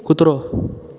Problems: constant background noise